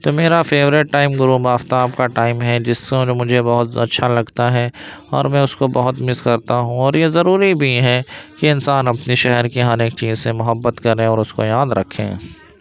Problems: constant background noise